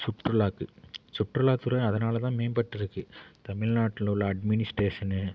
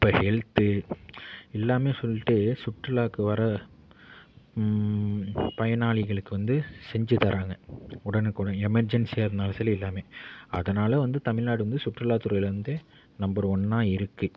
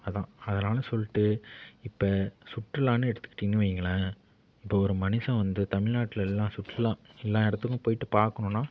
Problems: none marked